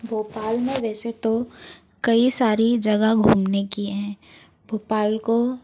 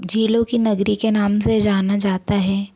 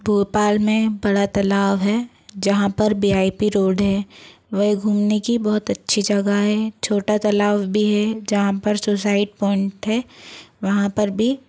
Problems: constant background noise